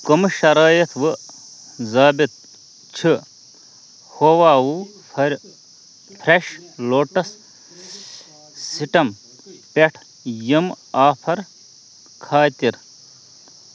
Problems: constant background noise